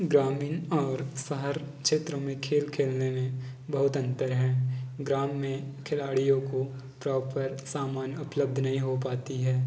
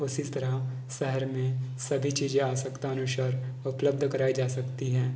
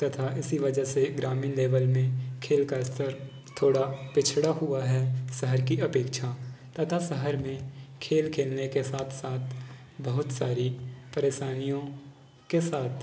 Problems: background conversations at intervals